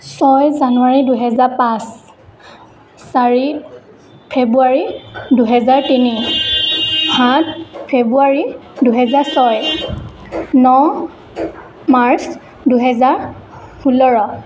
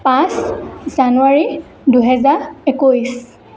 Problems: constant background noise